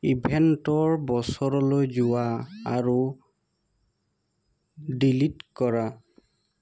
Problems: constant background noise